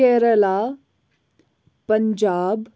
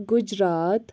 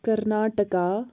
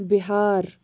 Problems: none marked